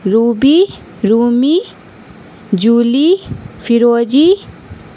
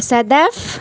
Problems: constant background noise